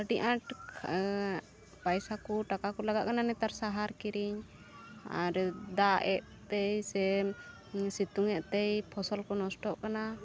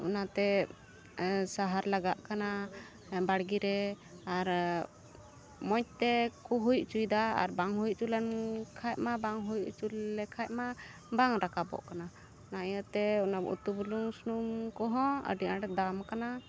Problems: background sounds at intervals